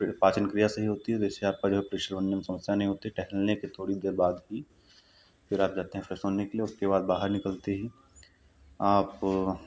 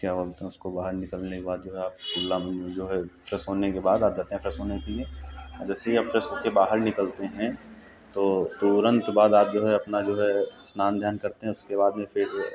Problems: none marked